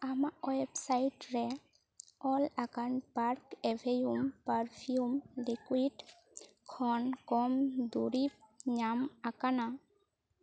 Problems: none marked